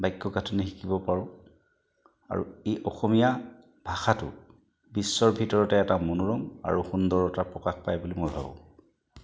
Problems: background sounds at intervals